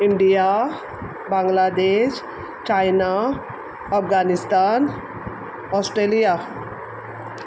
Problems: background sounds at intervals